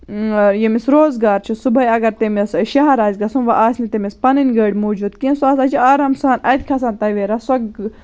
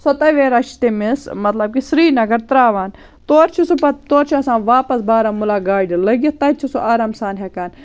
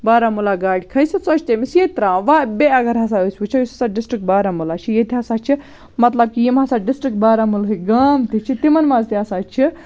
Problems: none marked